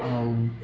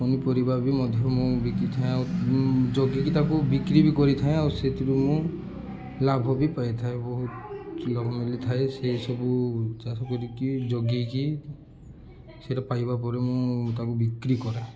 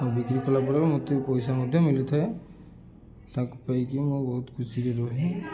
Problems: constant background noise, continuous background conversations